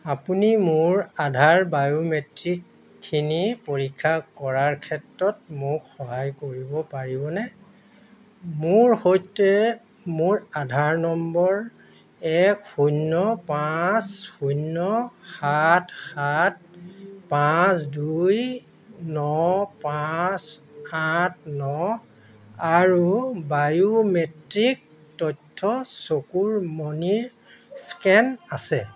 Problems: constant background noise